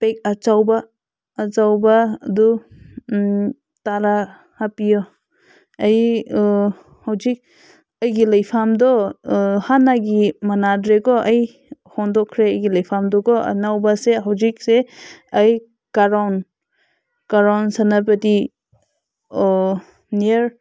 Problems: constant background noise